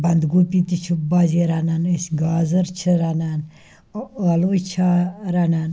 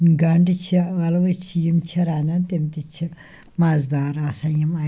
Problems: none marked